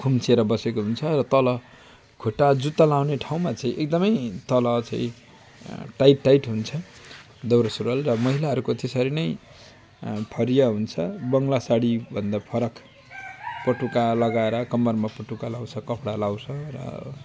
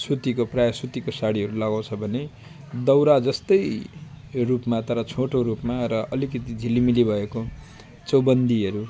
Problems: constant background noise